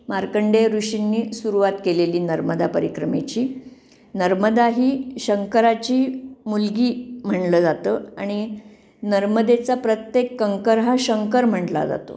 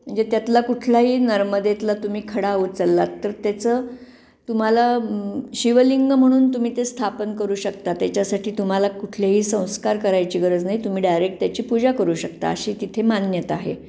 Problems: background sounds at intervals